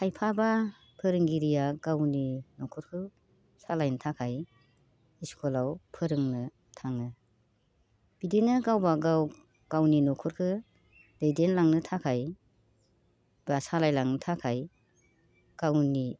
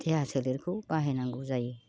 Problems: constant background noise